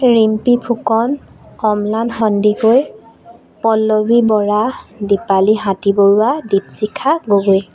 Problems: constant background noise